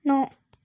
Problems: background sounds at intervals